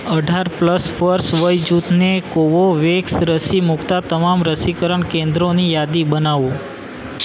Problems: none marked